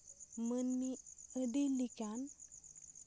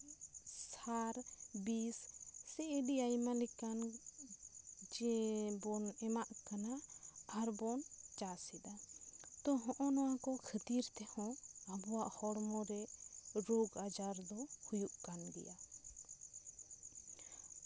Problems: none marked